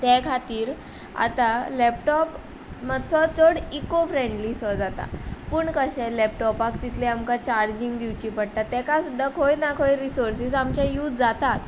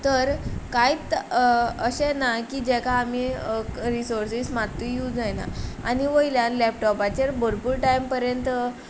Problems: background sounds at intervals